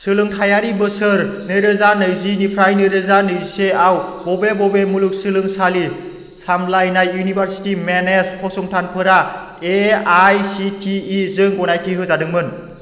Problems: constant background noise